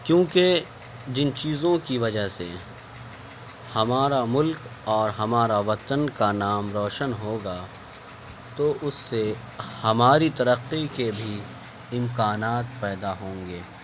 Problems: constant background noise